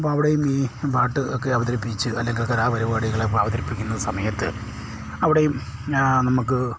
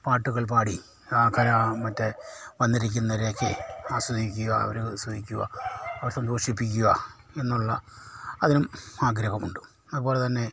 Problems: low volume